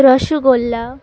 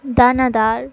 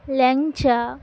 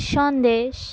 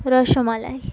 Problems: background sounds at intervals